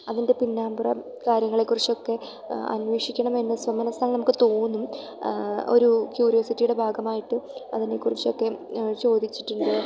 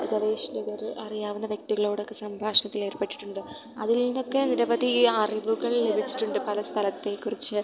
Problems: background sounds at intervals